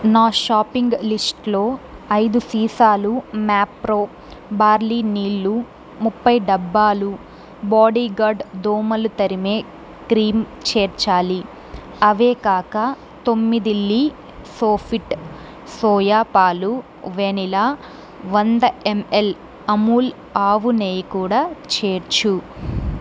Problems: constant background noise